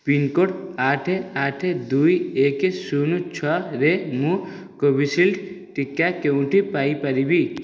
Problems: none marked